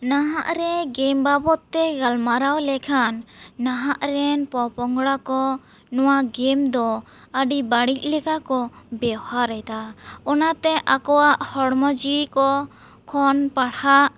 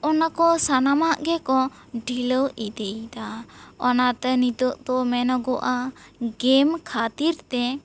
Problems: none marked